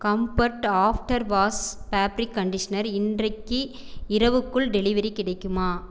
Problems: none marked